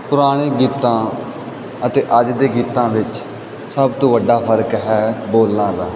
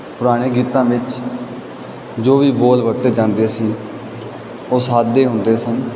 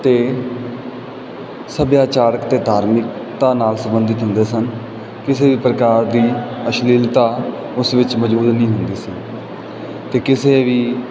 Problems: background sounds at intervals